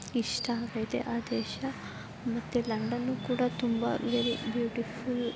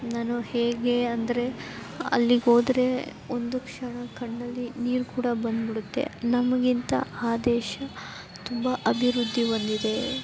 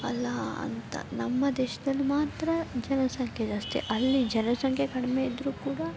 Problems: background sounds at intervals